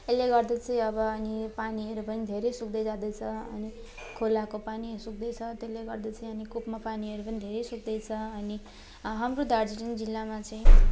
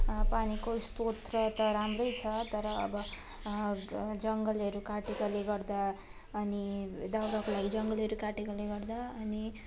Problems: constant background noise, continuous background conversations